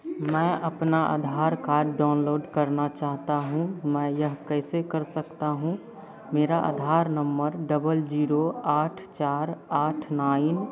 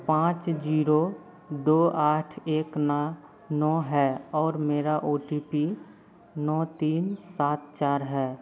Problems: none marked